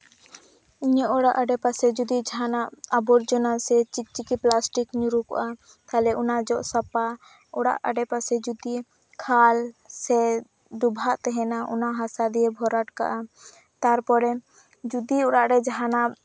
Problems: constant background noise